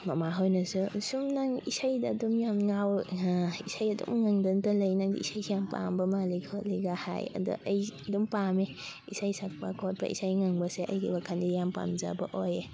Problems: constant background noise, background conversations at intervals